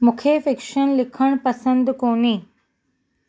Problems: none marked